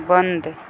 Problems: constant background noise